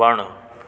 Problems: constant background noise, echo